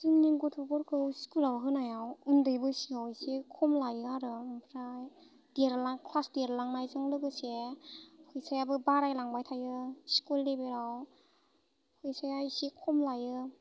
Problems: constant background noise